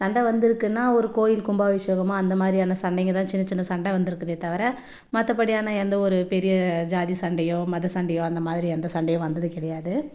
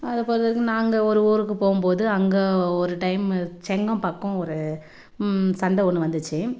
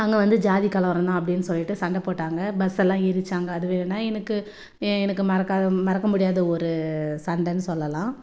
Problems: none marked